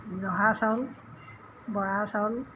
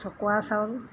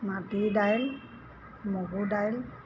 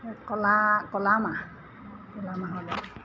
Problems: background sounds at intervals